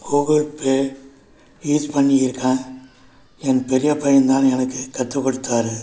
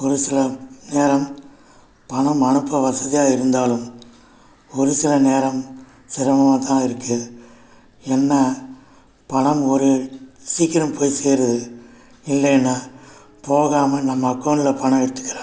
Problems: constant background noise